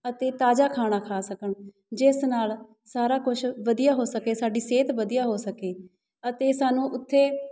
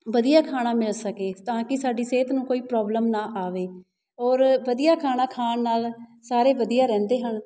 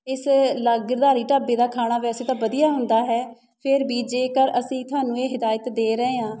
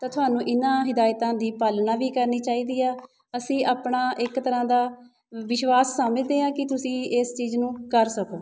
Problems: none marked